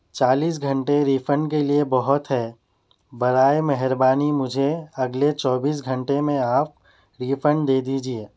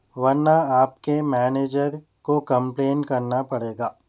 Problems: none marked